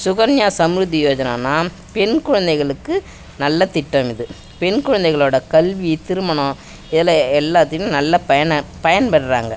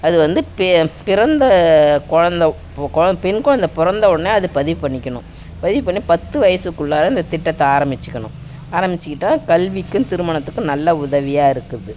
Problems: none marked